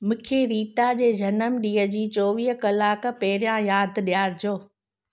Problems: none marked